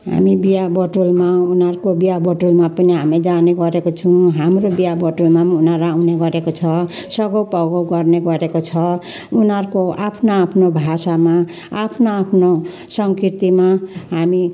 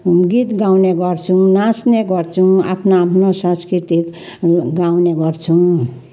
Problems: constant background noise